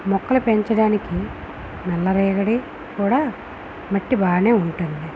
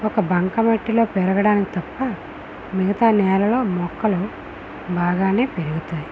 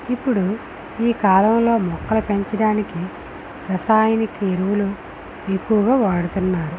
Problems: constant background noise